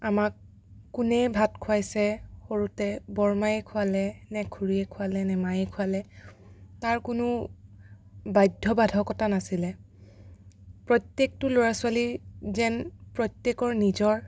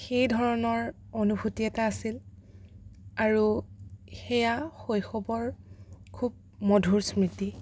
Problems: none marked